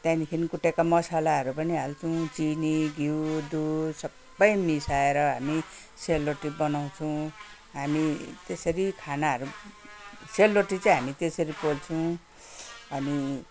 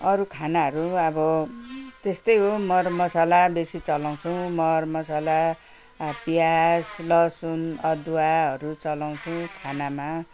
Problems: none marked